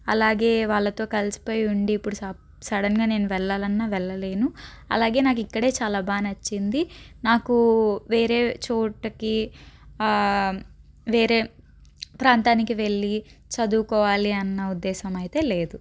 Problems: none marked